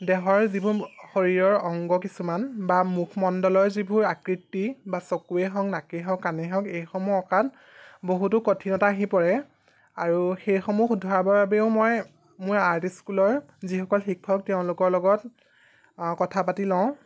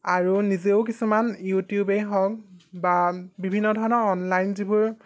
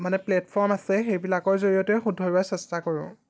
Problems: background sounds at intervals